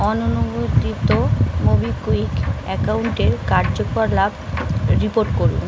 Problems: constant background noise